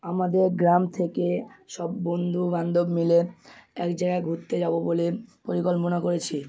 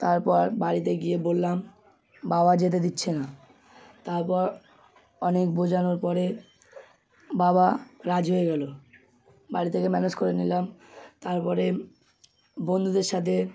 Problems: none marked